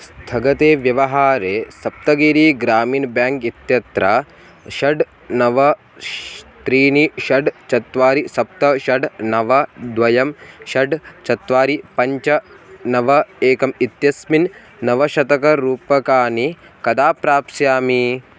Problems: constant background noise